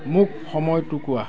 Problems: background conversations at intervals